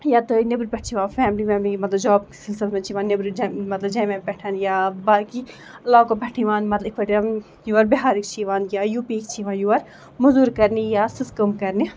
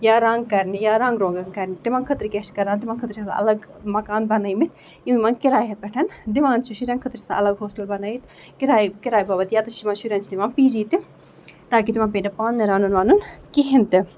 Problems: background sounds at intervals